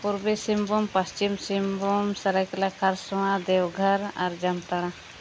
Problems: none marked